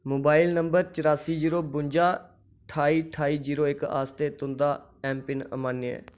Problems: none marked